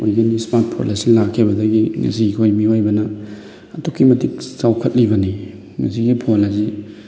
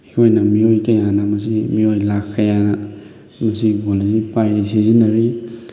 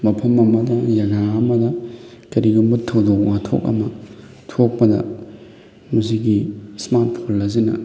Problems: background sounds at intervals, background conversations at intervals